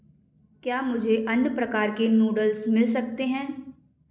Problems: echo